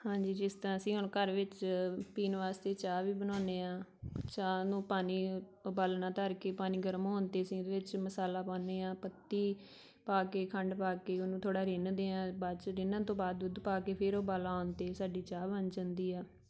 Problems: background conversations at intervals